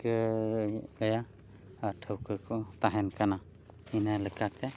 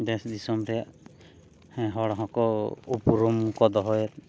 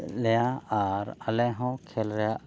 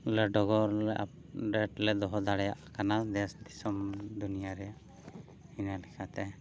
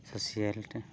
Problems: background sounds at intervals